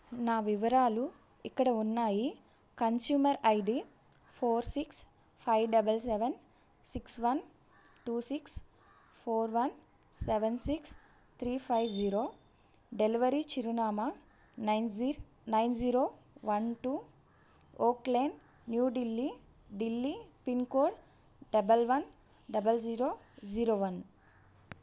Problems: none marked